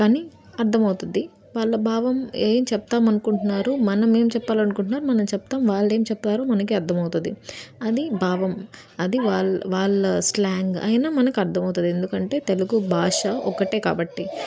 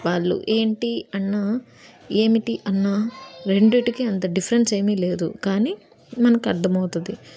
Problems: background sounds at intervals